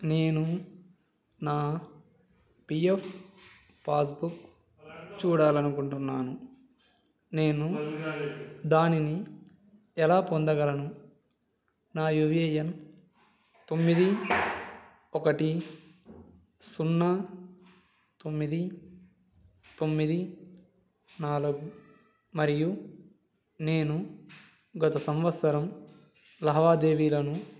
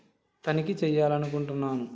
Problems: background sounds at intervals, background conversations at intervals